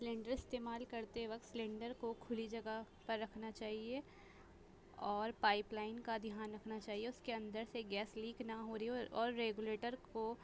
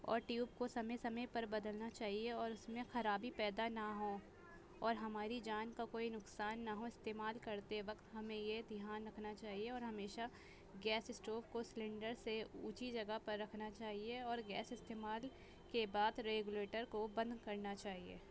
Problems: constant background noise